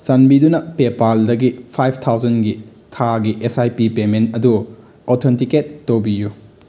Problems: background sounds at intervals